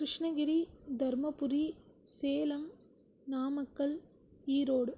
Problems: none marked